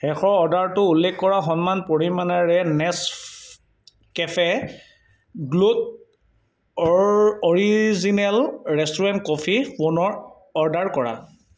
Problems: background sounds at intervals